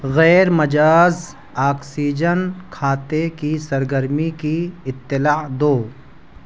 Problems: none marked